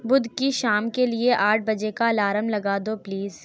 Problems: none marked